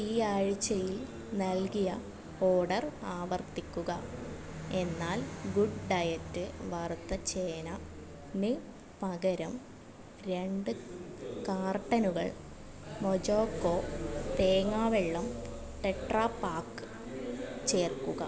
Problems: continuous background conversations, low volume